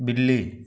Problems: none marked